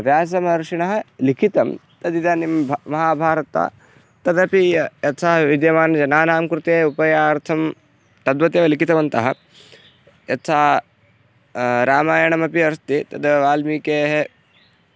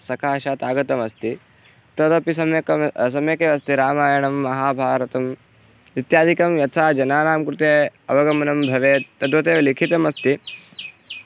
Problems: none marked